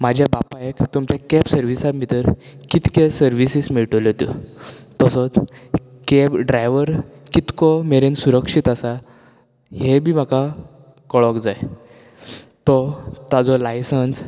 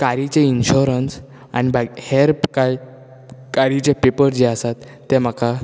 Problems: none marked